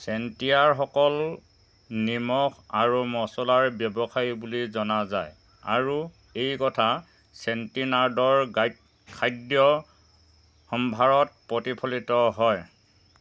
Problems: constant background noise, background conversations at intervals